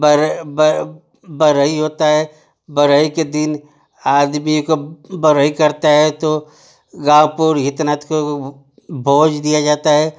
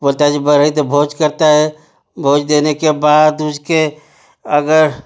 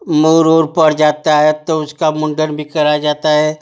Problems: none marked